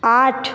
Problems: background sounds at intervals